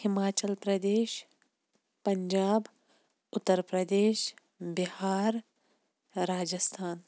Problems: none marked